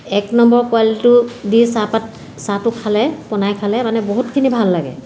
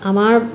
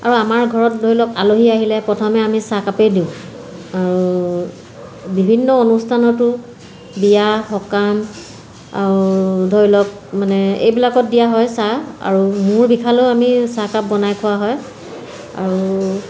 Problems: none marked